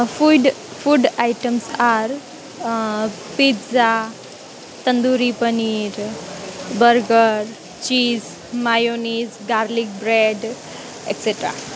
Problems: constant background noise